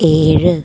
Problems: background sounds at intervals